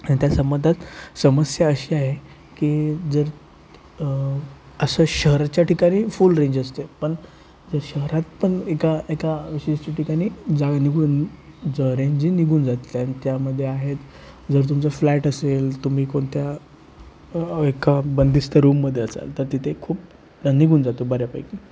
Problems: constant background noise